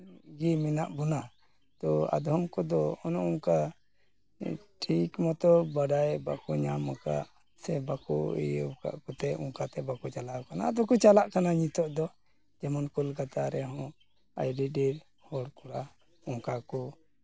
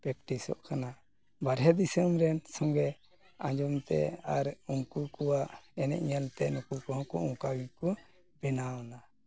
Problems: background sounds at intervals